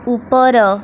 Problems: constant background noise